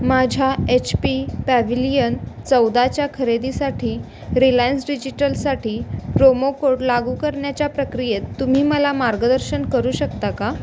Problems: constant background noise